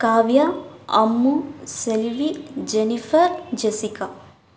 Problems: background sounds at intervals